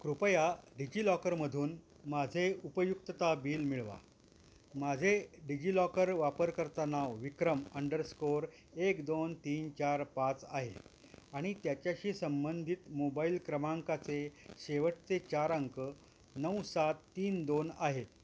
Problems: constant background noise